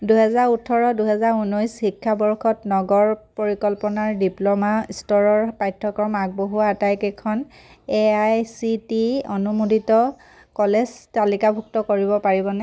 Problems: none marked